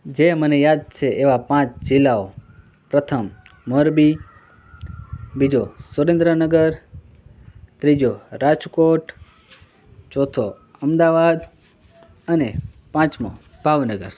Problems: constant background noise